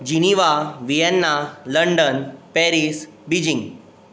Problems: constant background noise